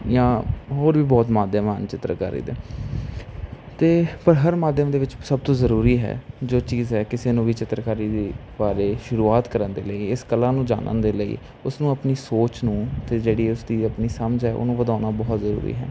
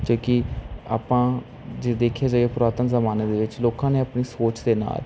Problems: constant background noise